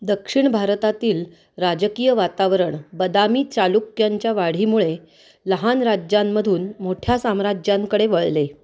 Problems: none marked